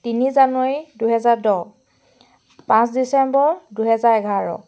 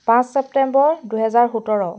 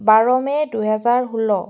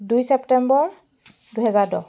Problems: none marked